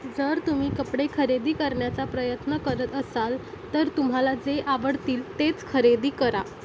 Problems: constant background noise